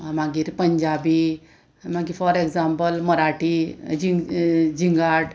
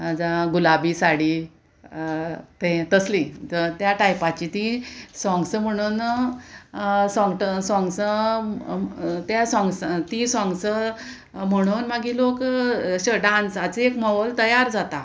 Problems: constant background noise